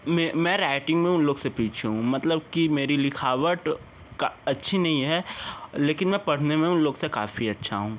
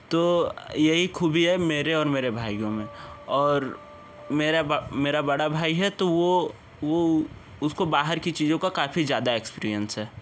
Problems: background conversations at intervals